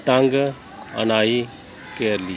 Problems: background sounds at intervals